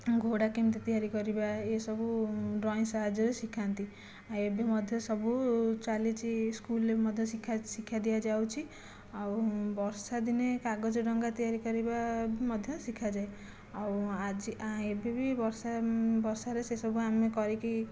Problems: low volume